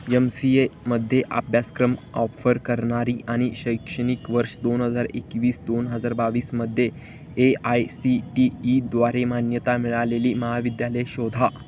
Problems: constant background noise